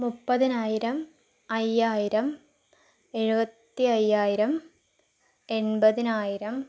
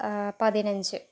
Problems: none marked